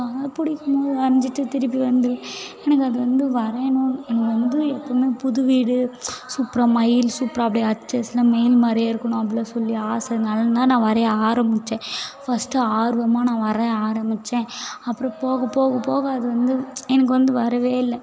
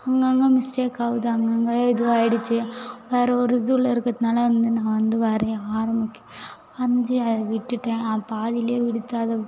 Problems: background conversations at intervals